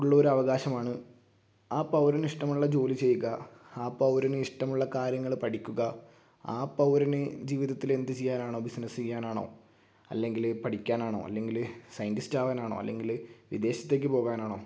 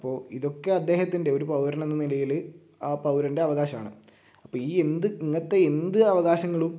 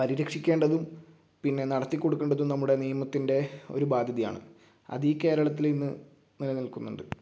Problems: low volume